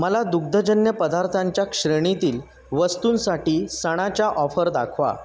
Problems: background sounds at intervals